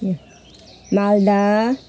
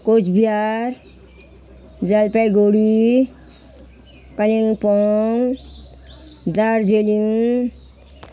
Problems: none marked